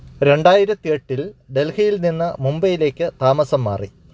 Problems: none marked